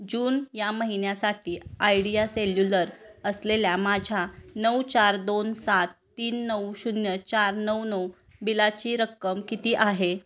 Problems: constant background noise, background conversations at intervals